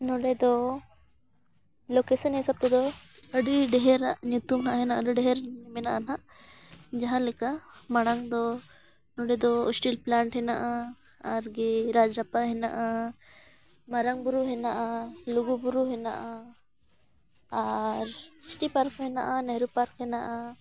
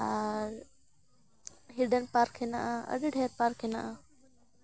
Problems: none marked